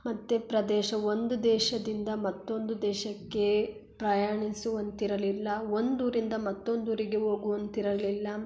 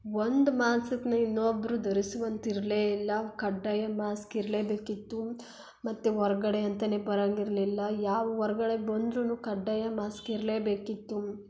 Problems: none marked